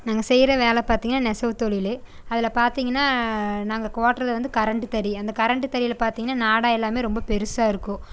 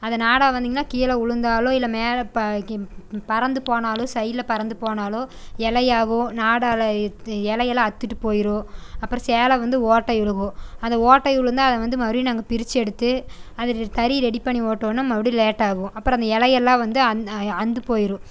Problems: constant background noise